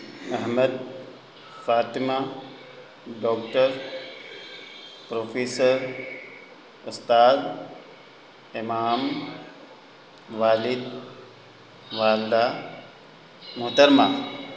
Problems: constant background noise